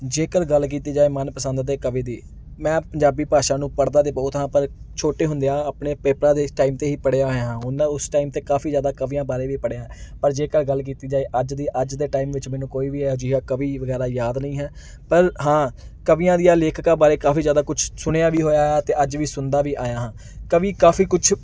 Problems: background sounds at intervals